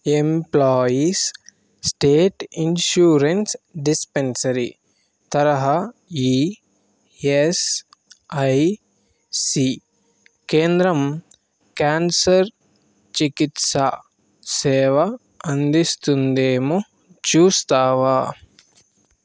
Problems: constant background noise